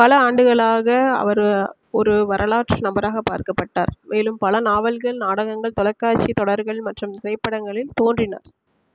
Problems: constant background noise